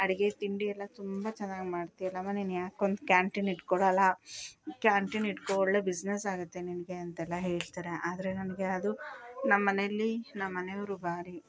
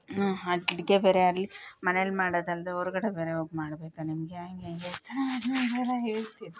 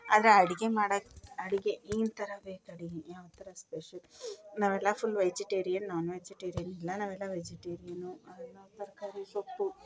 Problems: background sounds at intervals